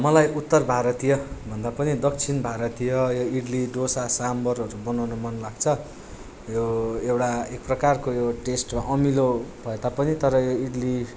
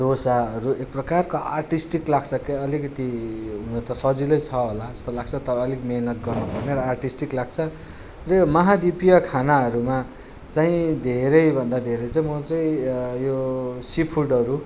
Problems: background sounds at intervals